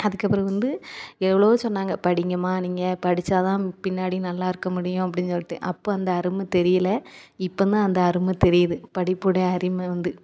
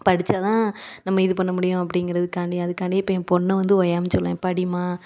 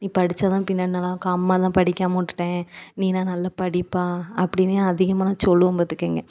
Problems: none marked